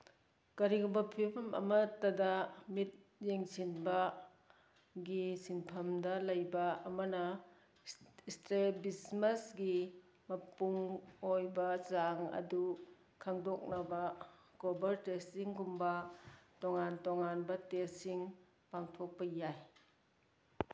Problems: none marked